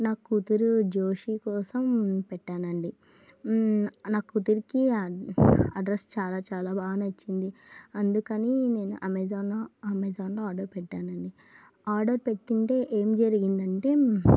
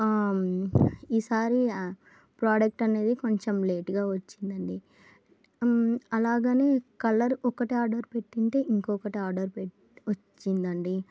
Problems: low volume